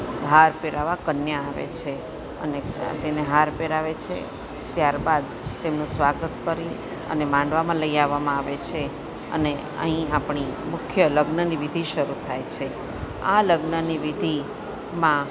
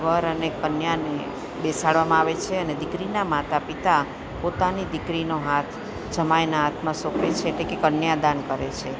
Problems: constant background noise